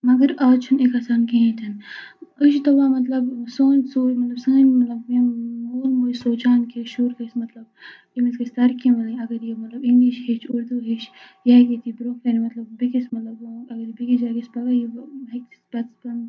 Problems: constant background noise, low volume